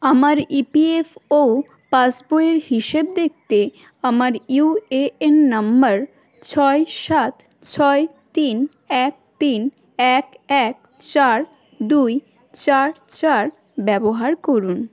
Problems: continuous background conversations